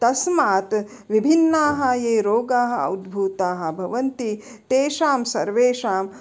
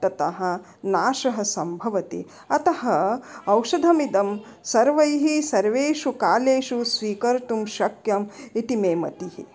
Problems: none marked